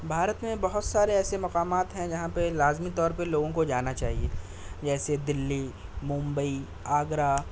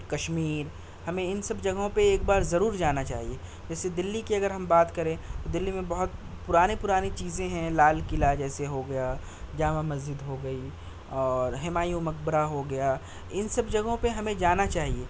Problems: constant background noise